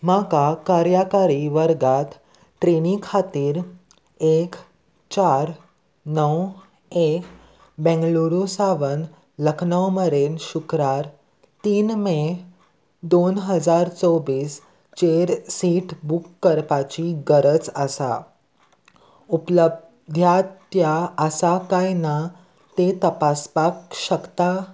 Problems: none marked